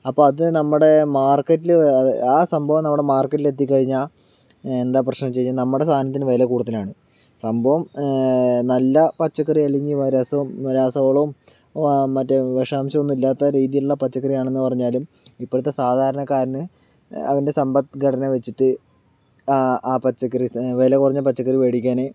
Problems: background sounds at intervals